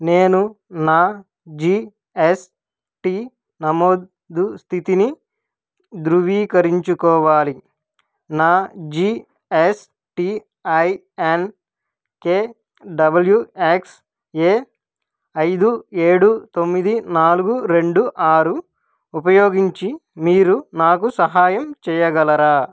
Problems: none marked